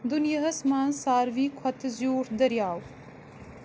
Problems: constant background noise